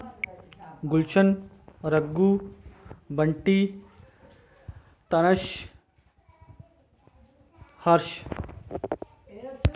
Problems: background sounds at intervals